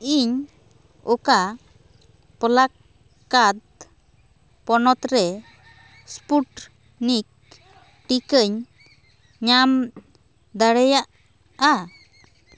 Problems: constant background noise, continuous background conversations